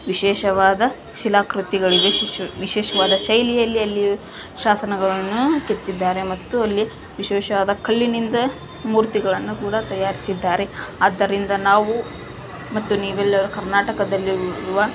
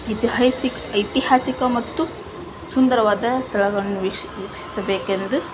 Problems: background sounds at intervals